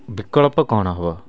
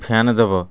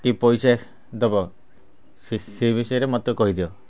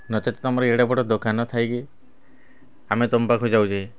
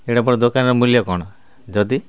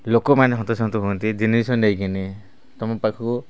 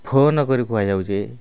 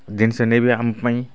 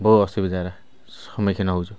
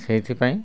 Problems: constant background noise